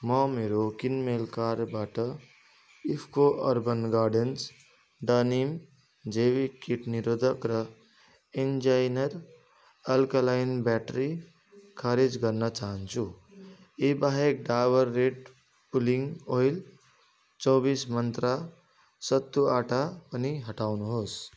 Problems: continuous background conversations